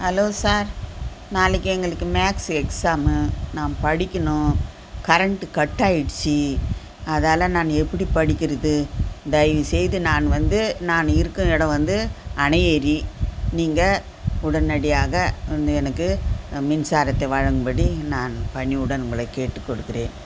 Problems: constant background noise